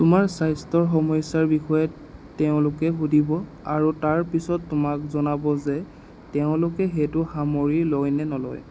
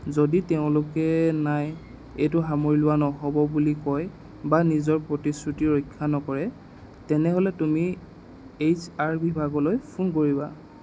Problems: constant background noise